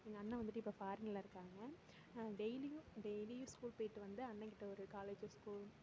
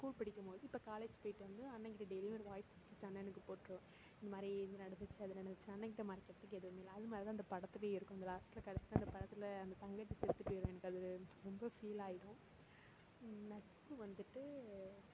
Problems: constant background noise